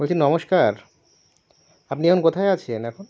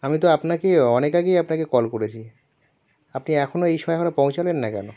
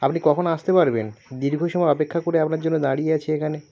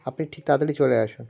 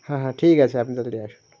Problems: none marked